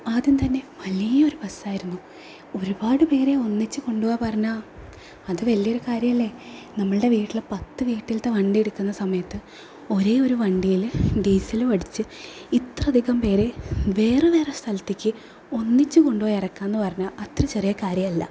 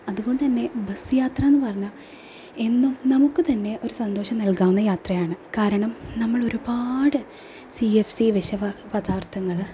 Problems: none marked